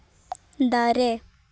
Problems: none marked